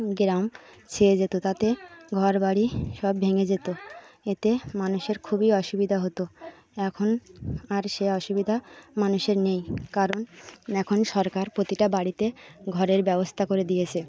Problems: constant background noise, continuous background conversations